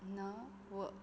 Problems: constant background noise